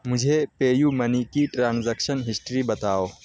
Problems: constant background noise